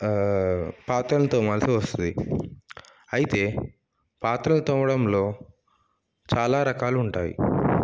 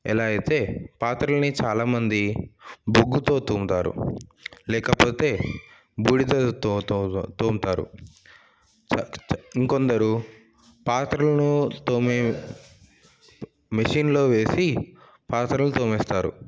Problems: background sounds at intervals